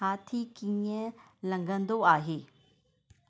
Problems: none marked